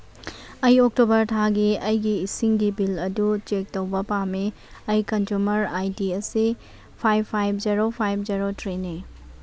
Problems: none marked